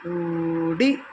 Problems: none marked